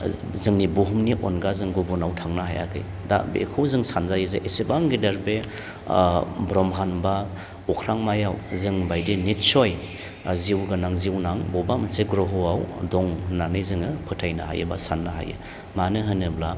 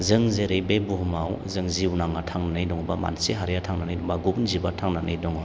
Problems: none marked